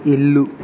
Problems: constant background noise